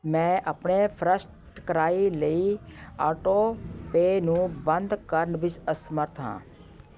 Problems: continuous background conversations